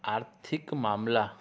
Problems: constant background noise